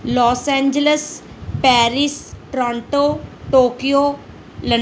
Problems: none marked